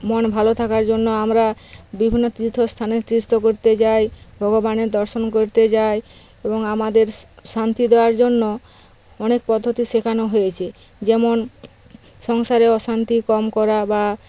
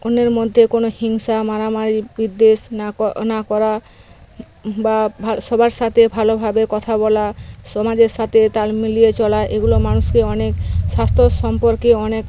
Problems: none marked